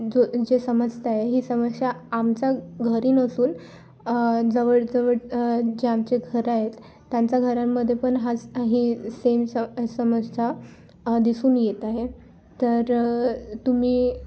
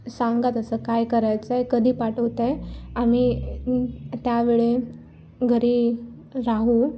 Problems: background sounds at intervals